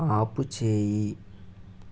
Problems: constant background noise